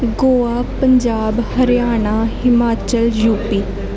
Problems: none marked